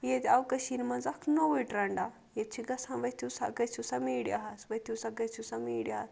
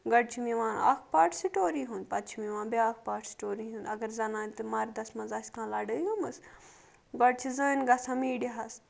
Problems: none marked